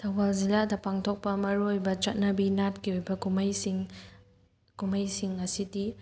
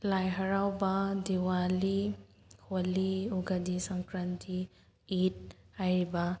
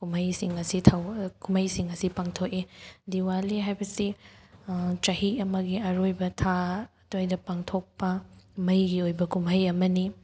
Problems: none marked